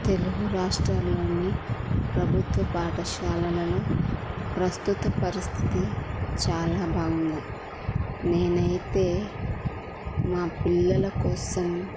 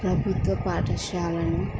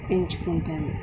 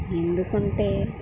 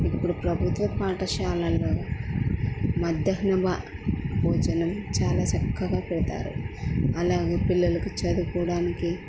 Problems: constant background noise